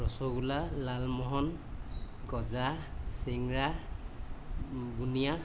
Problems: constant background noise